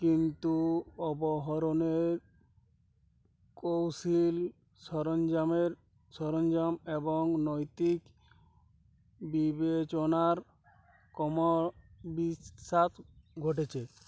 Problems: none marked